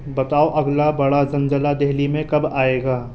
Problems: constant background noise